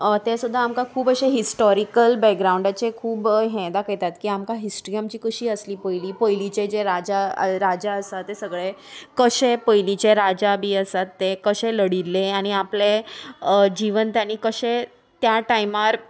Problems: none marked